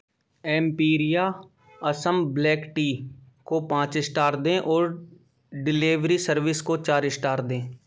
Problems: background sounds at intervals